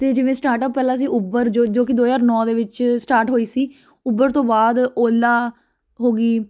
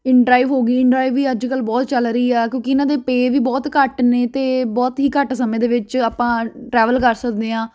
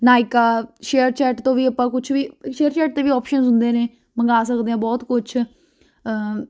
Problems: constant background noise